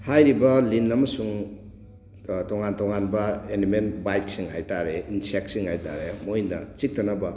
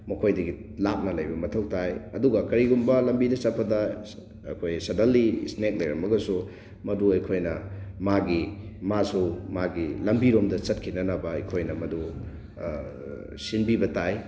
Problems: constant background noise